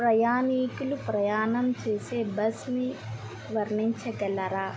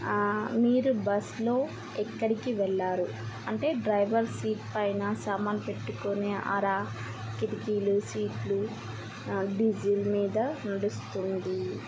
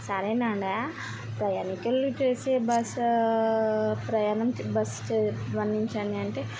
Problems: constant background noise